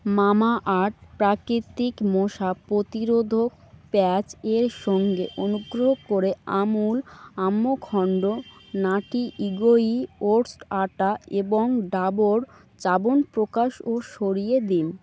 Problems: constant background noise